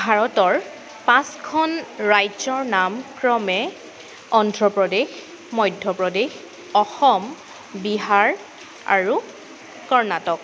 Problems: constant background noise